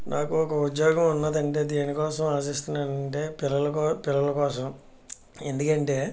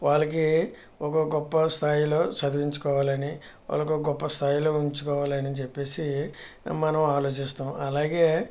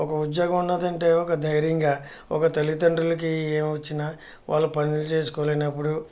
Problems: none marked